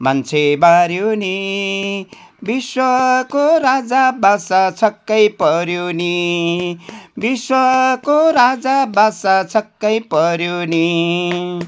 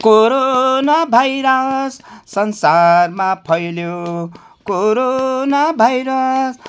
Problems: none marked